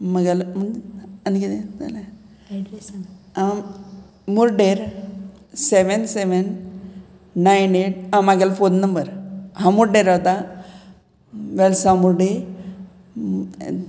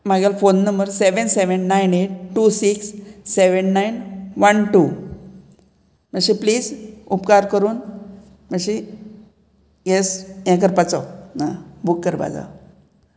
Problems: background conversations at intervals